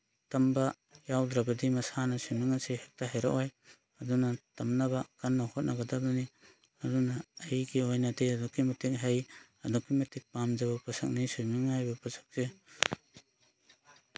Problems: none marked